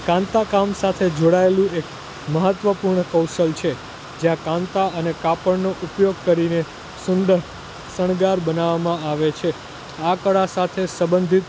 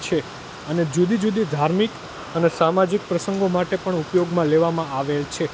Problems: none marked